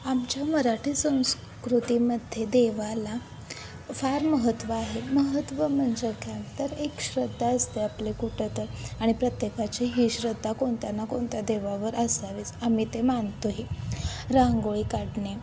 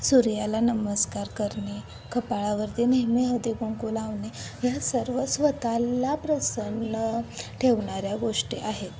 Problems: constant background noise, continuous background conversations